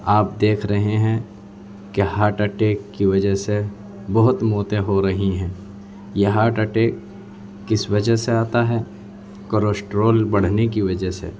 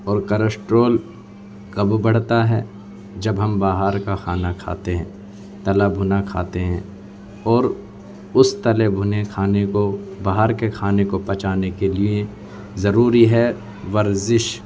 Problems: background sounds at intervals, background conversations at intervals